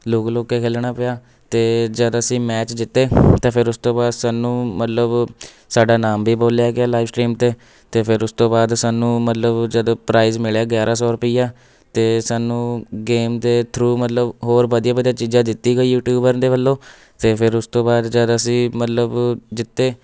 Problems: background sounds at intervals